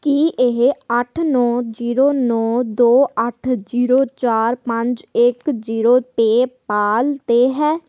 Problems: none marked